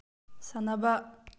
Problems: low volume